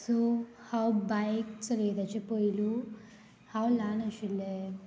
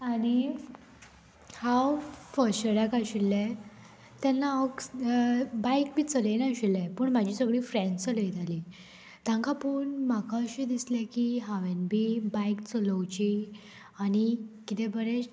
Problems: constant background noise